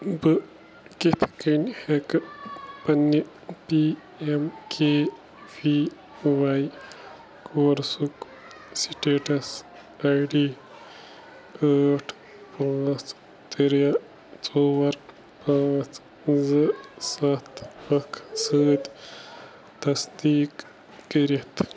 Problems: none marked